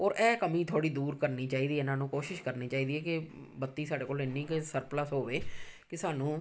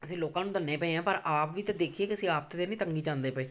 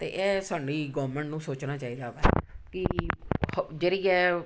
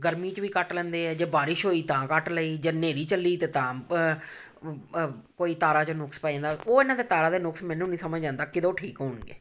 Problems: background sounds at intervals